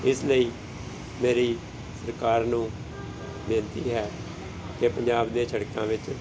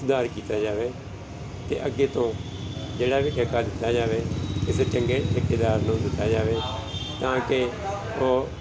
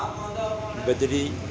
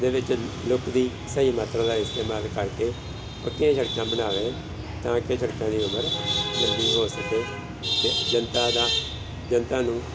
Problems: constant background noise, background conversations at intervals